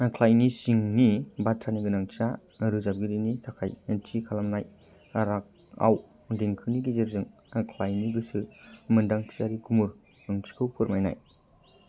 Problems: low volume